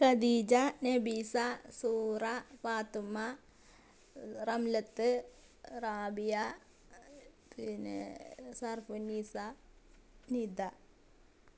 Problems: none marked